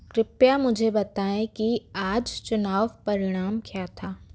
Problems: background sounds at intervals